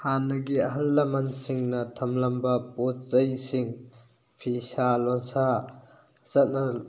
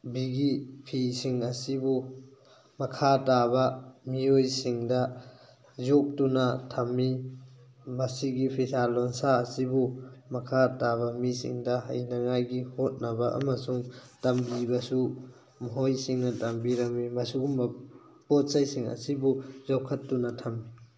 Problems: background sounds at intervals